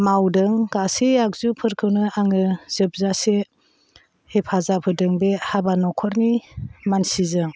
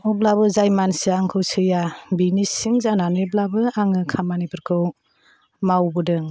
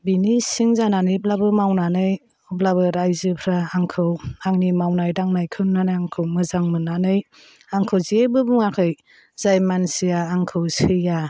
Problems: none marked